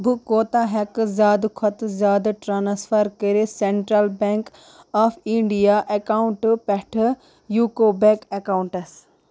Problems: constant background noise